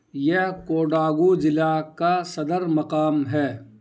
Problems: constant background noise